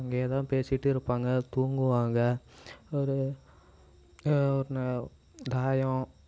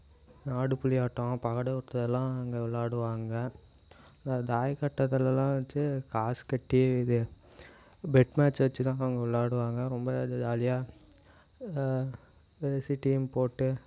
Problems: none marked